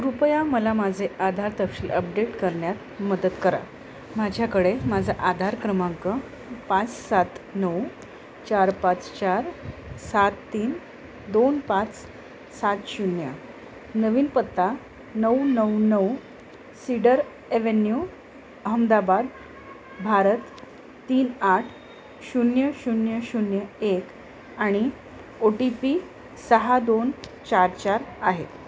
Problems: constant background noise